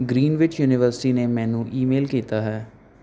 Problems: none marked